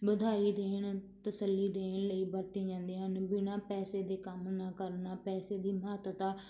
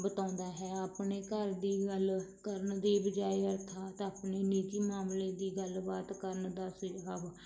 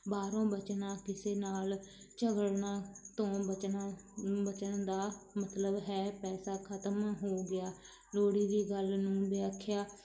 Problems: none marked